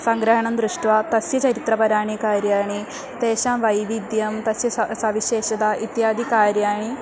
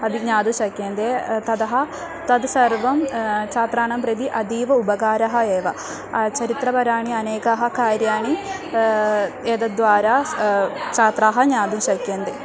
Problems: constant background noise, continuous background conversations